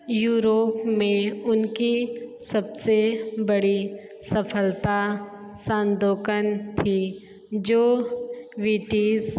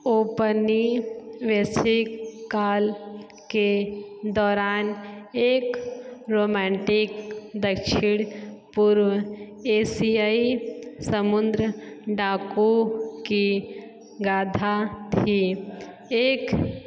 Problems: background sounds at intervals, echo